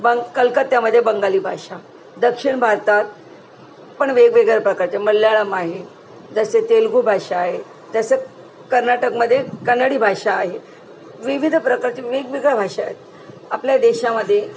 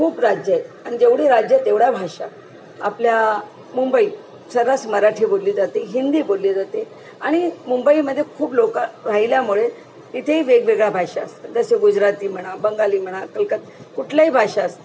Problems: none marked